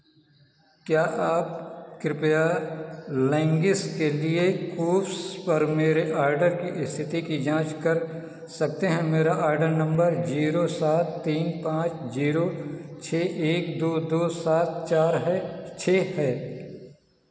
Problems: constant background noise